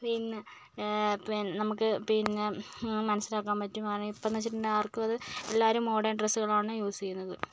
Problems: low volume